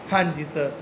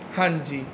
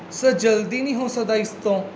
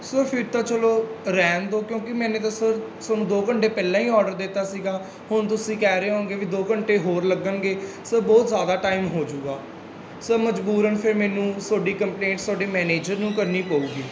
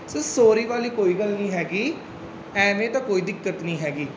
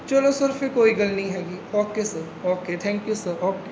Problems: constant background noise